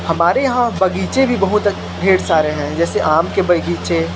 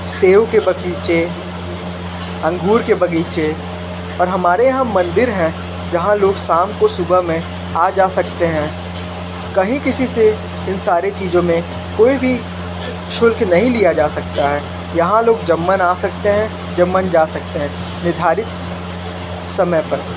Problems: constant background noise